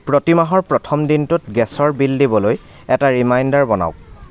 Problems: constant background noise, background conversations at intervals